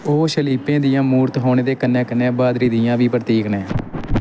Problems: constant background noise